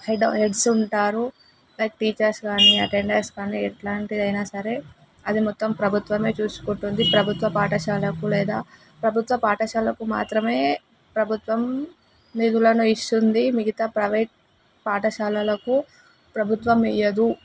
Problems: constant background noise